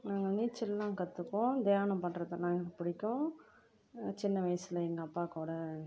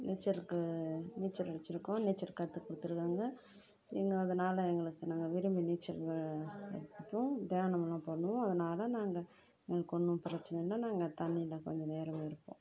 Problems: low volume